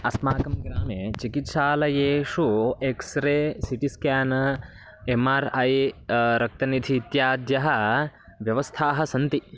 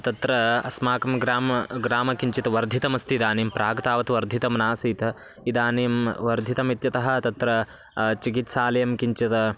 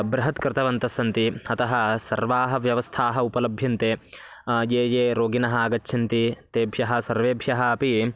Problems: constant background noise